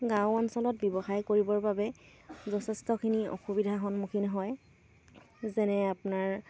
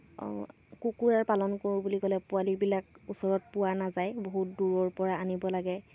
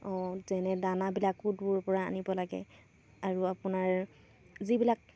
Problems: none marked